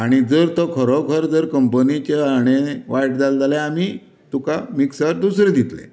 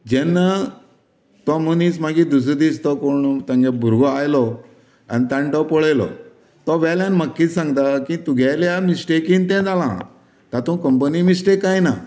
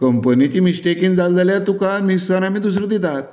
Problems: constant background noise